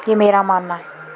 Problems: constant background noise, background conversations at intervals